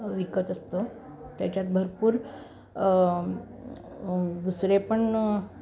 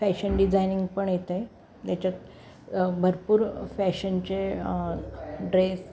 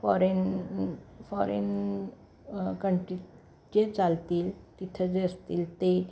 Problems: none marked